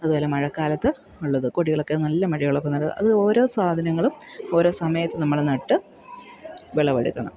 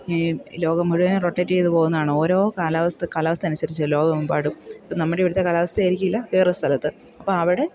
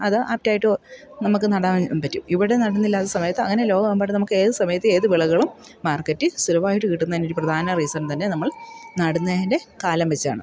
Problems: none marked